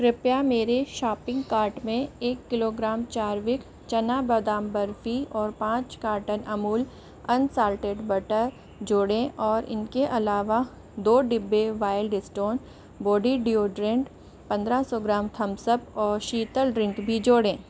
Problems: constant background noise